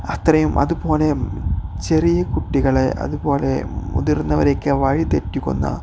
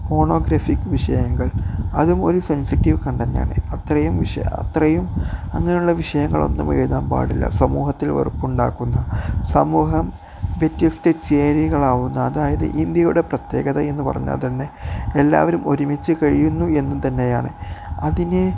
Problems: background sounds at intervals